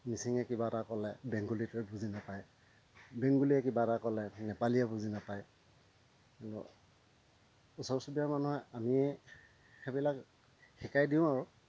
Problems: constant background noise, low volume